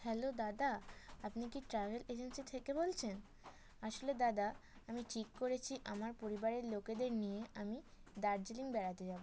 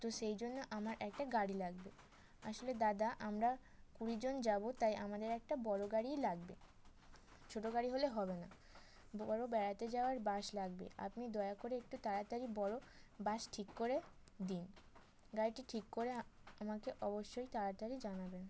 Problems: background sounds at intervals